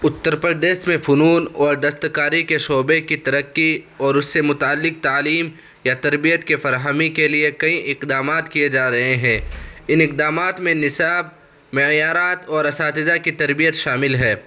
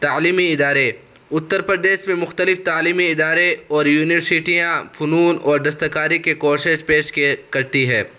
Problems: constant background noise